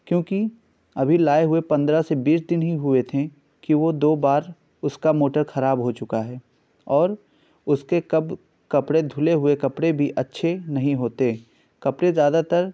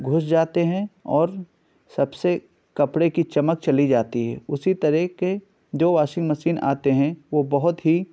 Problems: none marked